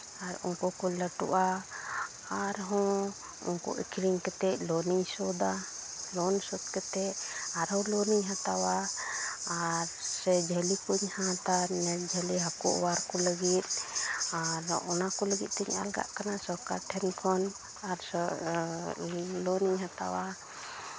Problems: constant background noise, continuous background conversations